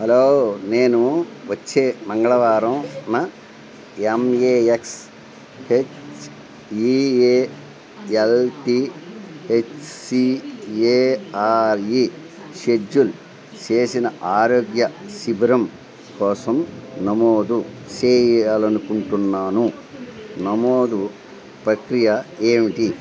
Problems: constant background noise